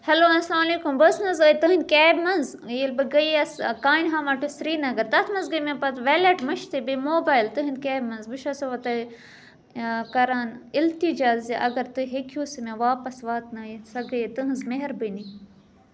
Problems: none marked